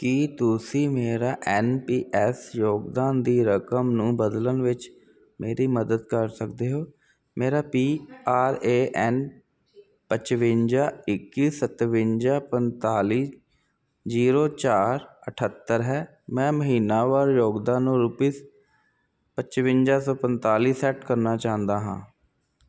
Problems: constant background noise